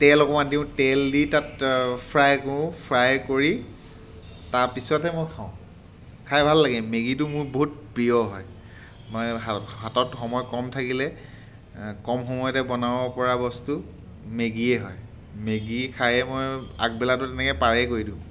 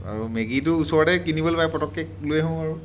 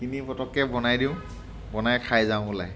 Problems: background sounds at intervals